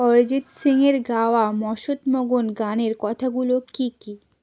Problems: constant background noise